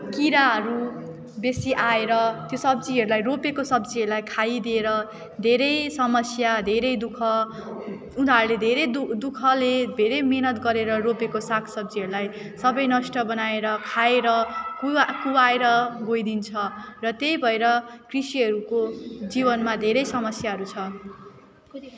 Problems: constant background noise, continuous background conversations